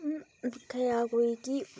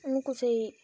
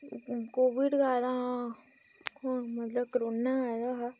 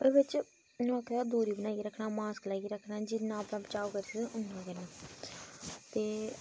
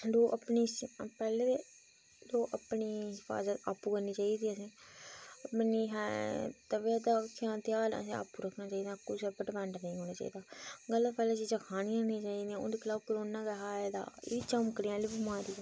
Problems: background sounds at intervals, low volume